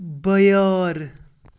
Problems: constant background noise